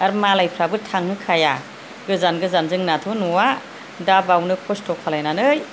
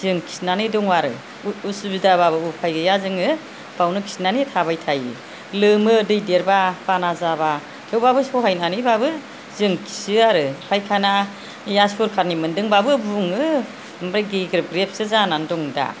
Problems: low volume